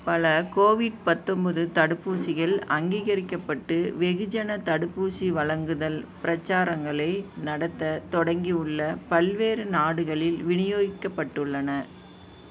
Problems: background sounds at intervals